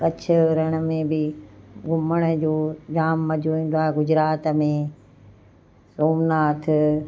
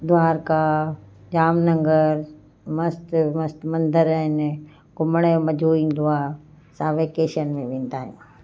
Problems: constant background noise